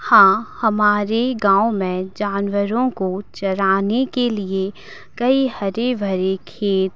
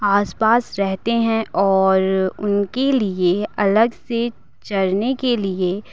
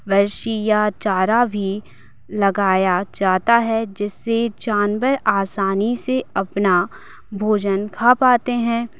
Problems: constant background noise